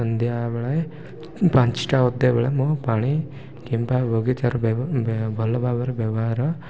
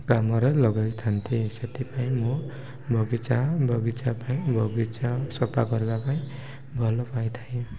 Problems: low volume